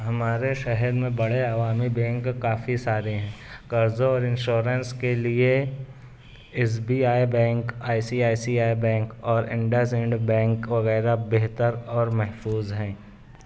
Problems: background sounds at intervals